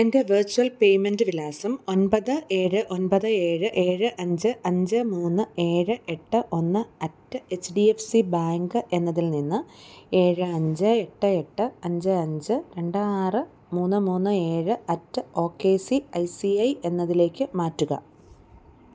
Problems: none marked